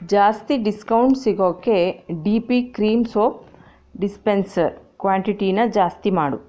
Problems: none marked